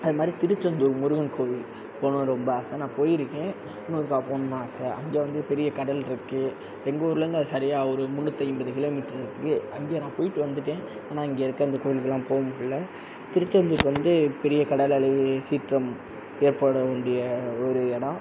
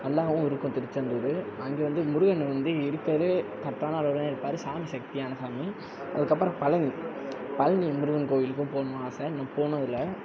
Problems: constant background noise